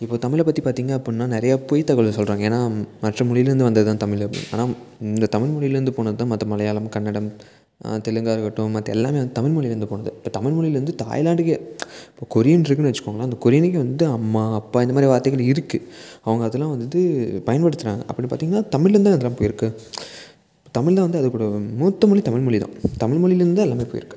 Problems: background sounds at intervals